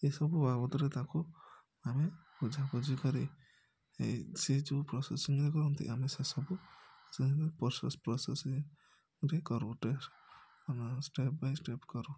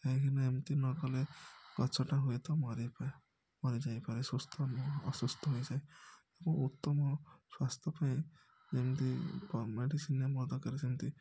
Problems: background sounds at intervals, low volume